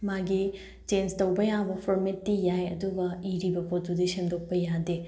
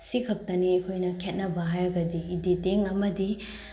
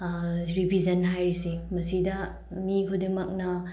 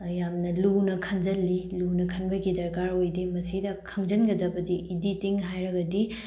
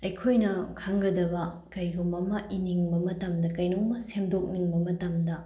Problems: none marked